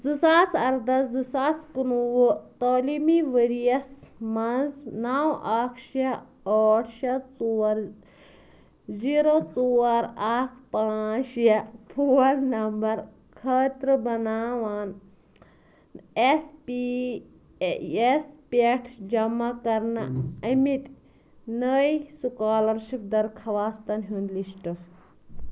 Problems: background conversations at intervals